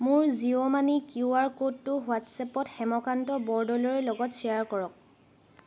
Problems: background sounds at intervals